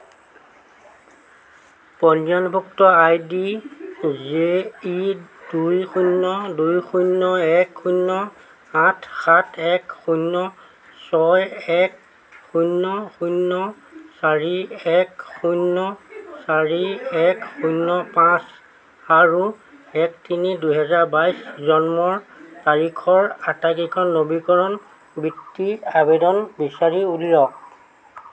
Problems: constant background noise